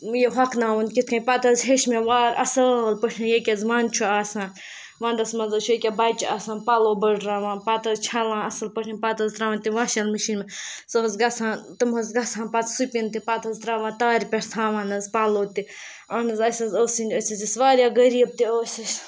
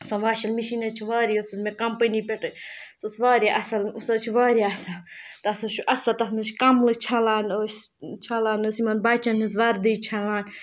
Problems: background sounds at intervals